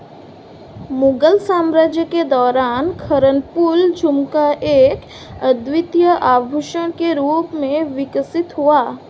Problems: none marked